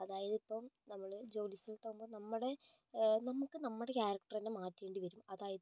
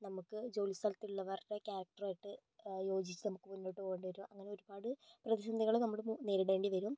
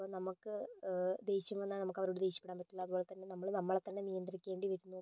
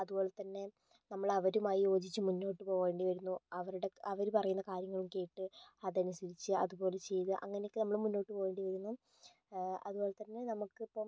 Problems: none marked